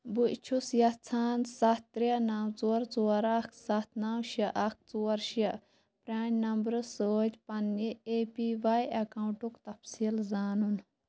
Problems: background sounds at intervals